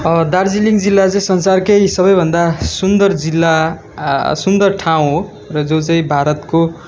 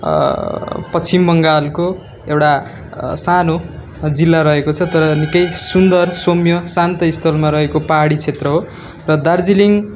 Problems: constant background noise